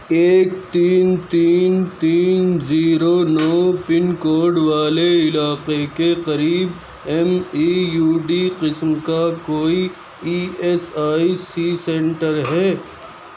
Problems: background sounds at intervals